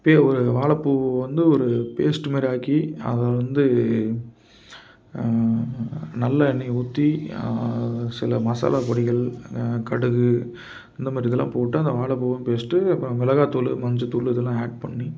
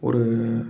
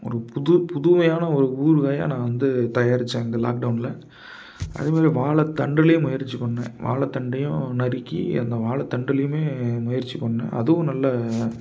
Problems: background sounds at intervals